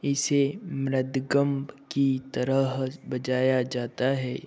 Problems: background sounds at intervals